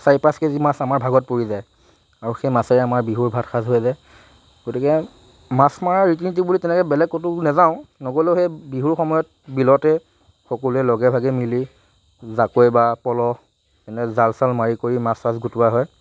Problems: none marked